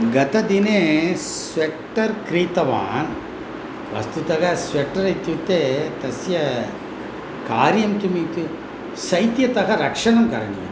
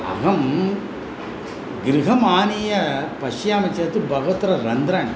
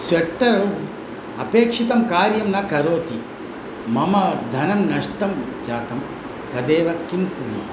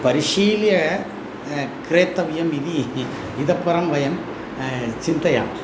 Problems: constant background noise